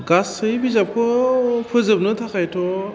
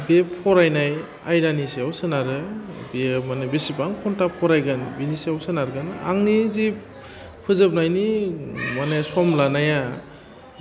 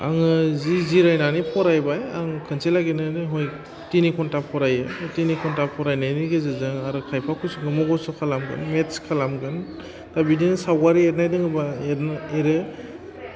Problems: constant background noise